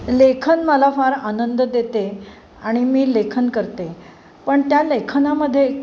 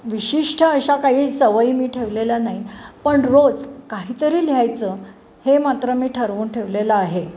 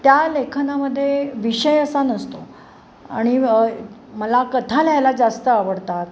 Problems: none marked